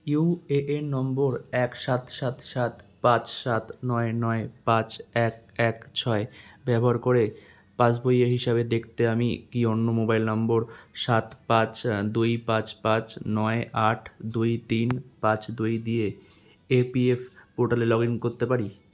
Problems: constant background noise